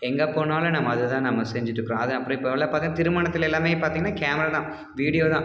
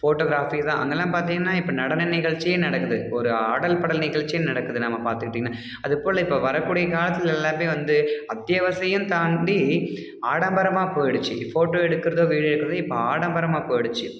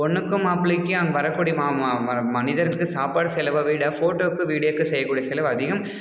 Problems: background sounds at intervals